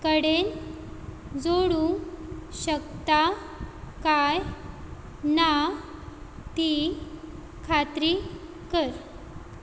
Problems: none marked